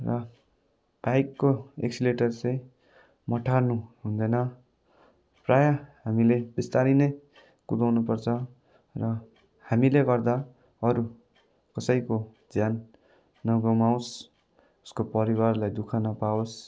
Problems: none marked